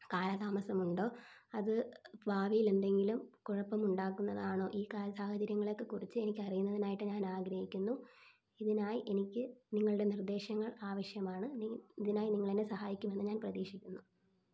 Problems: low volume